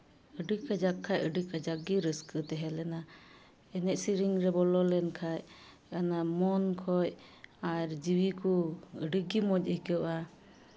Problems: background sounds at intervals